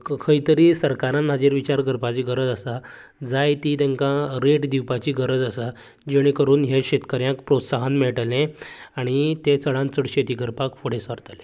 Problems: none marked